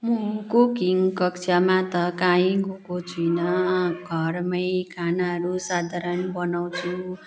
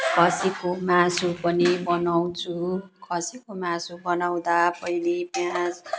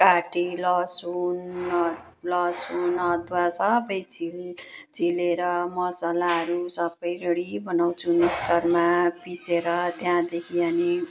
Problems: background sounds at intervals